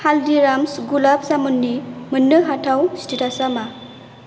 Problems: constant background noise